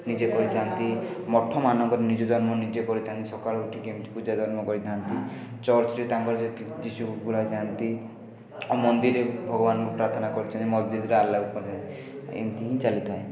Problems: background sounds at intervals, continuous background conversations